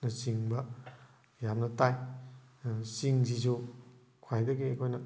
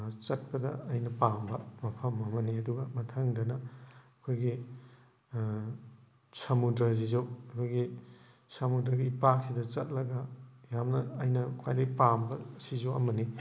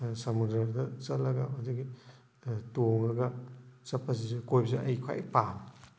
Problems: background sounds at intervals